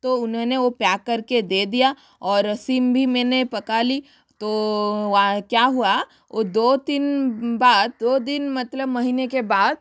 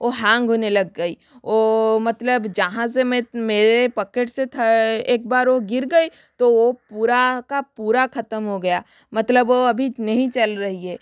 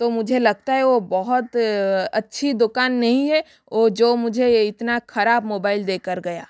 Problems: constant background noise